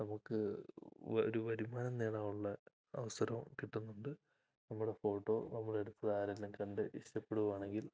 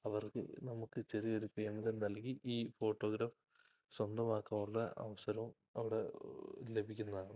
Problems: low volume